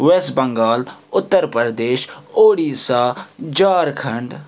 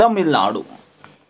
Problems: background sounds at intervals